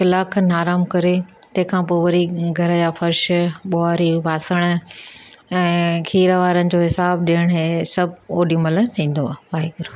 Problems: none marked